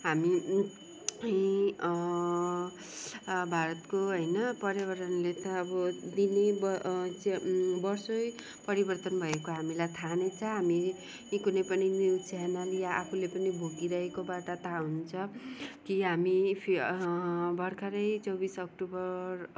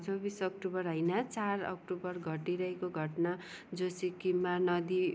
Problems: background sounds at intervals